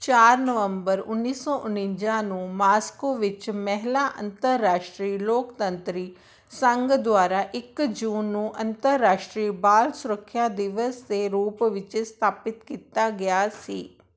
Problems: background sounds at intervals